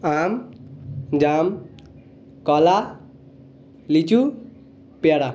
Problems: background conversations at intervals